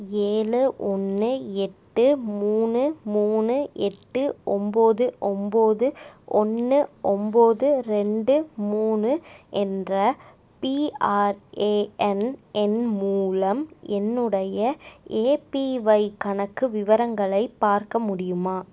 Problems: none marked